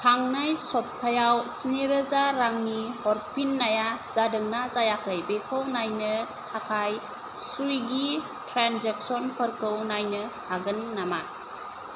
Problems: constant background noise